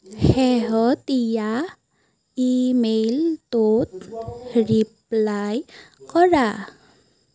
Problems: none marked